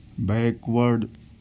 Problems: none marked